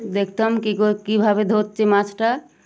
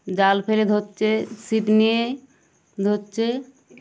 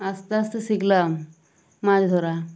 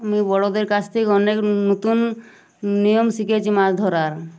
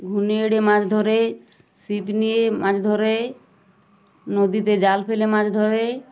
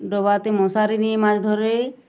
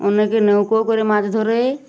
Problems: none marked